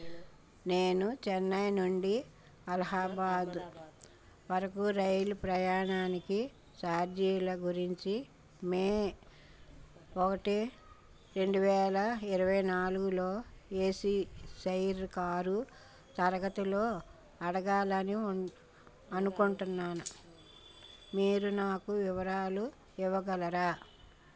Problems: background sounds at intervals, background conversations at intervals